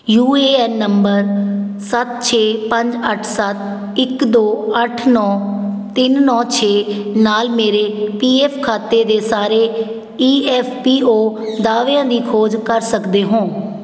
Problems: none marked